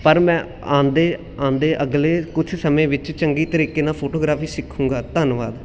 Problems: constant background noise